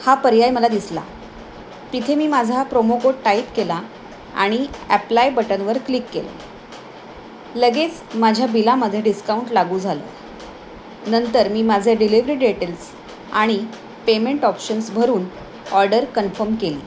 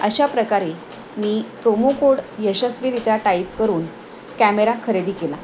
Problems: constant background noise